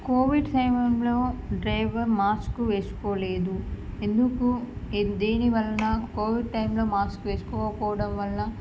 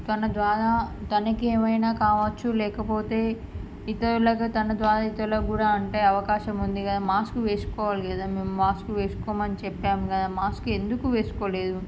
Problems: none marked